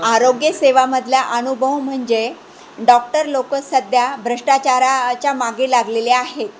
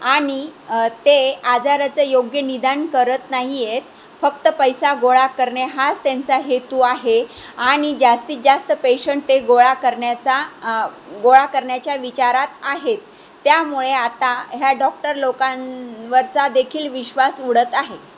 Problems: constant background noise, background conversations at intervals